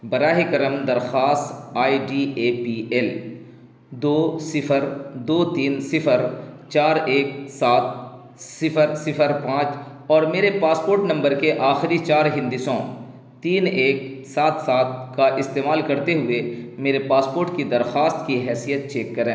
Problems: constant background noise